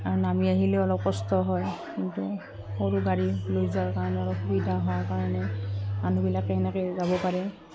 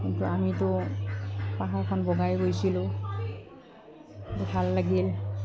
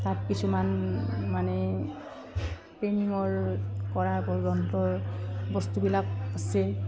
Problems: background sounds at intervals